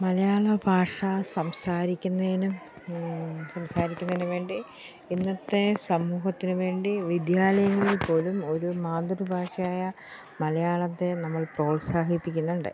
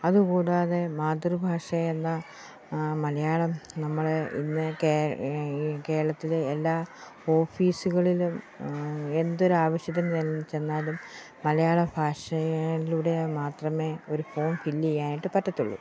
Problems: none marked